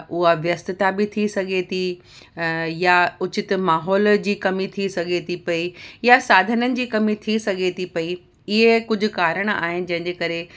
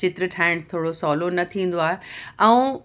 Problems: none marked